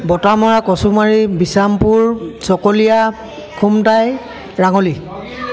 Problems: constant background noise, background conversations at intervals